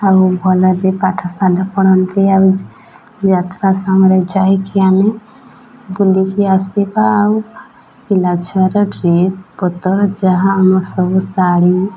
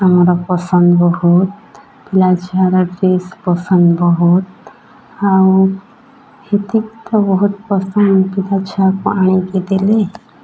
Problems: none marked